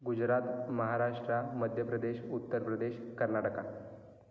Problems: constant background noise